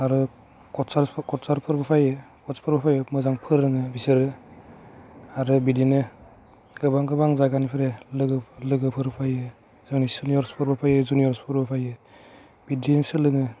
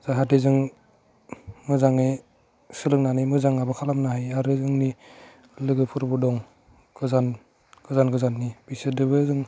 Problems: none marked